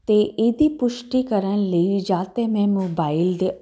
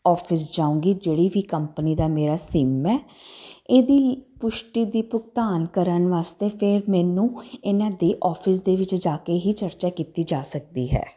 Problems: constant background noise